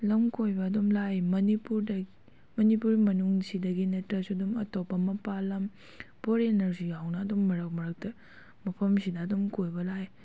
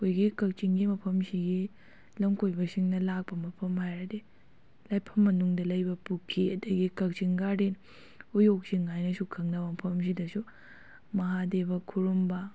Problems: none marked